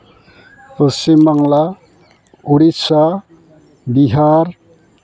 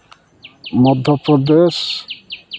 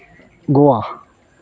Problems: constant background noise, continuous background conversations